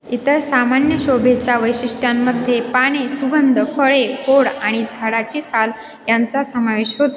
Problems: constant background noise, echo